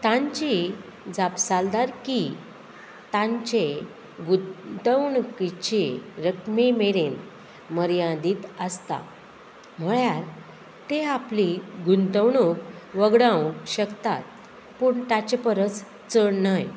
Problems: constant background noise